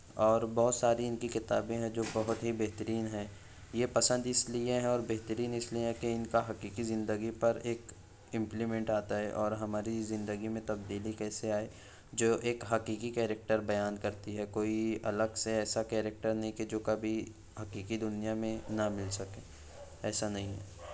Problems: none marked